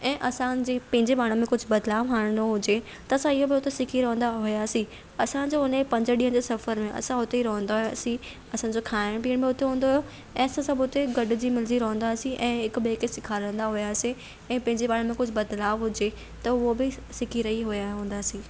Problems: constant background noise